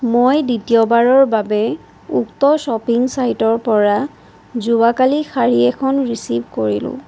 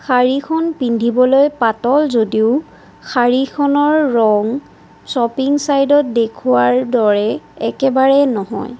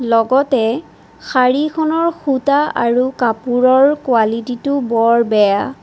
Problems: constant background noise